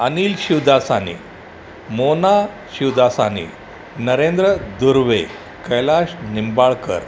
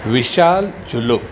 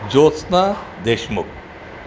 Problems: none marked